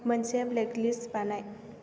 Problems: none marked